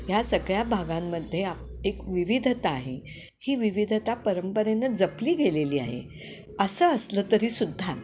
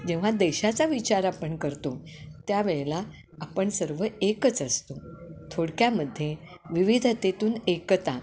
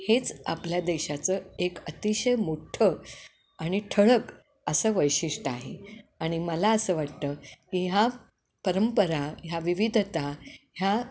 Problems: none marked